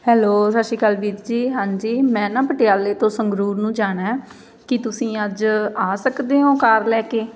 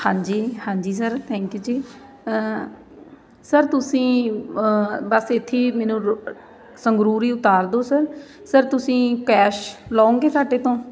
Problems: constant background noise